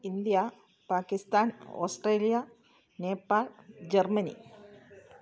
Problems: low volume